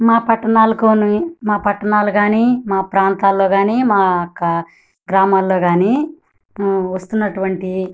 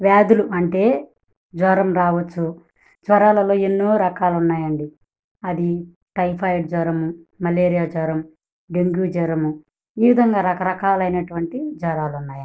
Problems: none marked